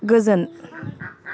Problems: background sounds at intervals